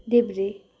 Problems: none marked